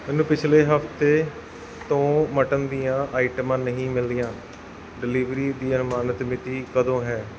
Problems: background sounds at intervals